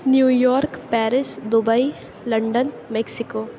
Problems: none marked